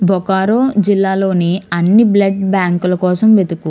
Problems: none marked